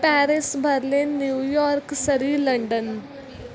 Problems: continuous background conversations